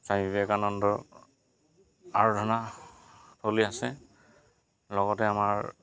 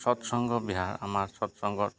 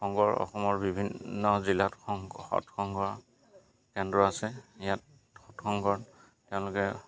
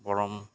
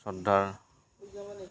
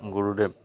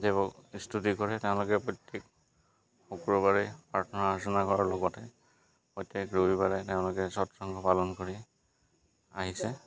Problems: constant background noise